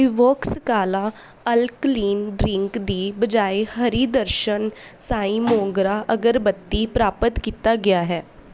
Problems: background sounds at intervals